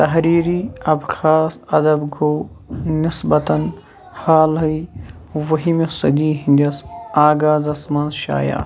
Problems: background sounds at intervals, background conversations at intervals